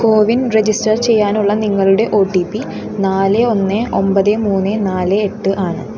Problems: constant background noise